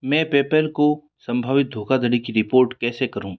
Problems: none marked